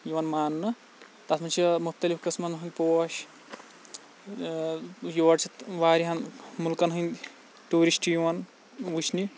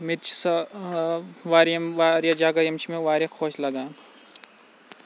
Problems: none marked